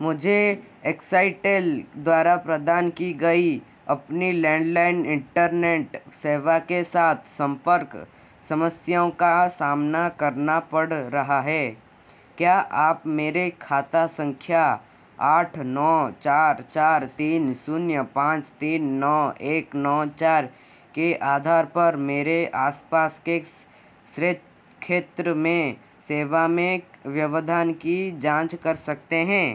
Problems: constant background noise